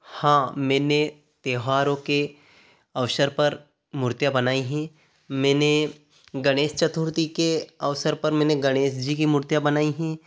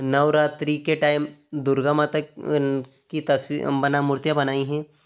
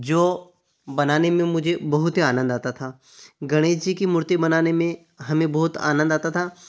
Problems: none marked